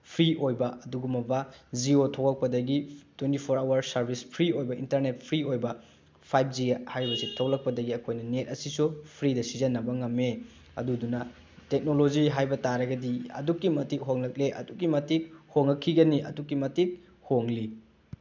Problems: none marked